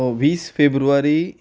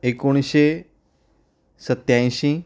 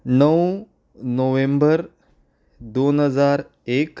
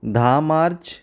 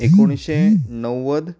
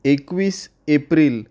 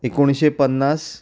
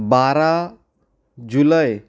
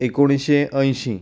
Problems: none marked